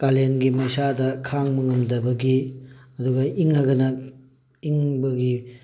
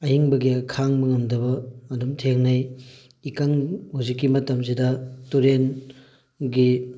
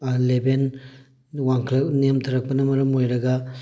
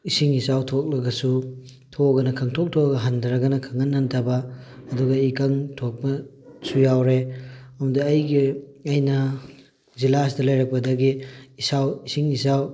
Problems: background sounds at intervals